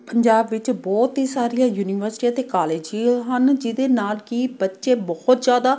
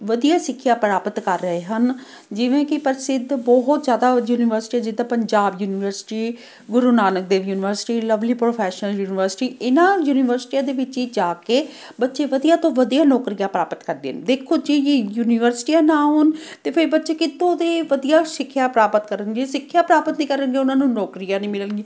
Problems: none marked